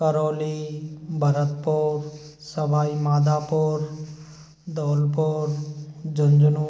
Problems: none marked